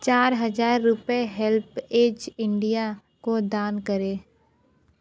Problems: continuous background conversations